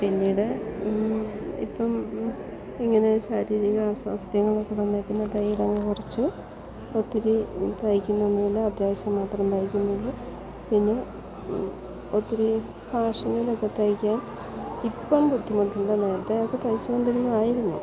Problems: continuous background conversations